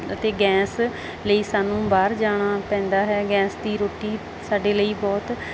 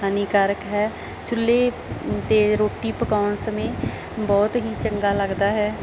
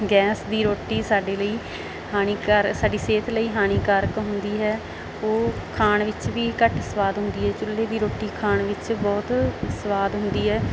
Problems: none marked